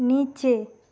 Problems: constant background noise